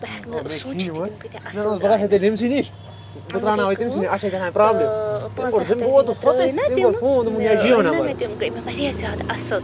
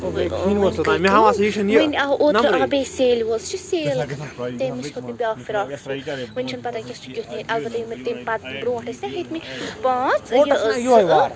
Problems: constant background noise, low volume